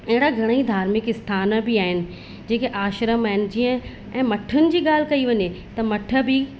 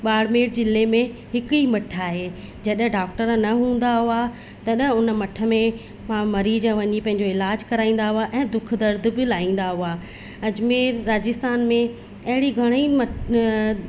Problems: constant background noise, echo